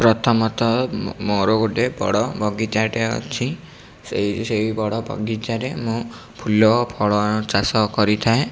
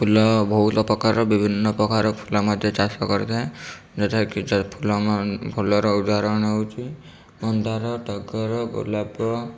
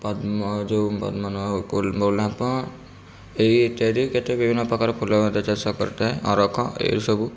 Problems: none marked